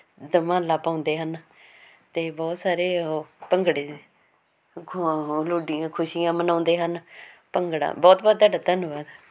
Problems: constant background noise